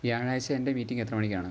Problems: constant background noise